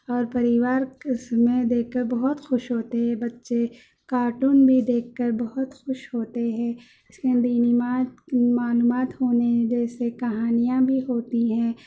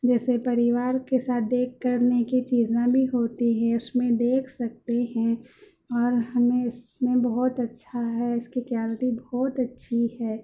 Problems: background sounds at intervals, background conversations at intervals